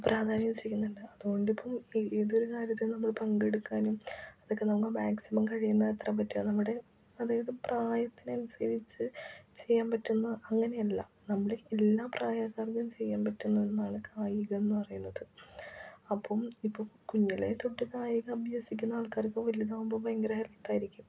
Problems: low volume